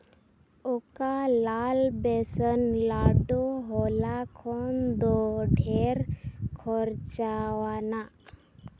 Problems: constant background noise